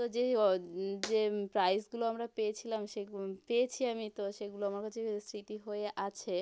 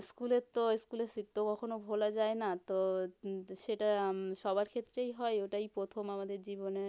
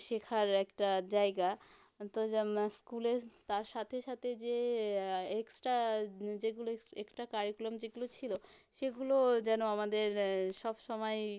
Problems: background sounds at intervals